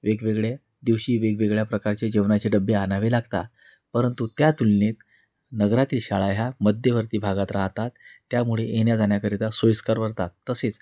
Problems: background sounds at intervals